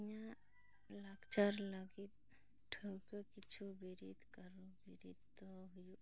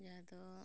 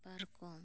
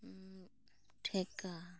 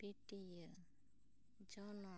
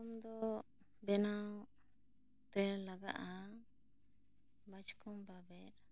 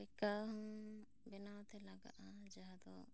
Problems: low volume